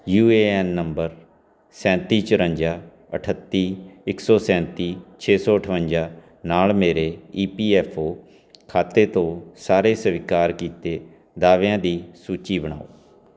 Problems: none marked